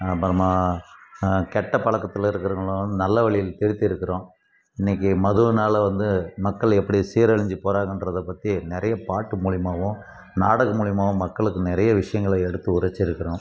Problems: constant background noise